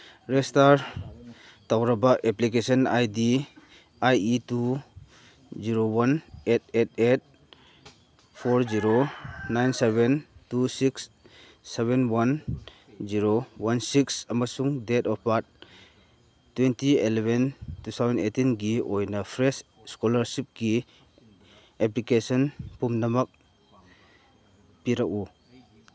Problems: none marked